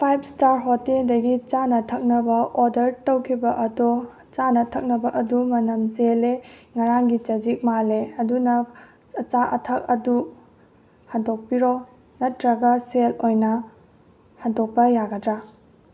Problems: none marked